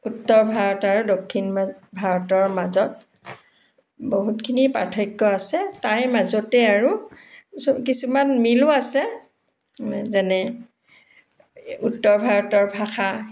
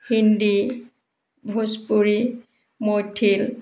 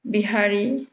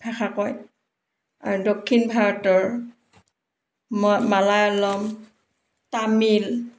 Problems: background sounds at intervals